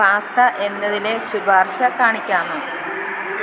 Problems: constant background noise